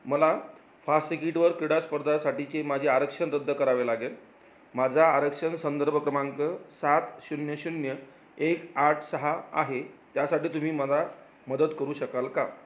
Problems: none marked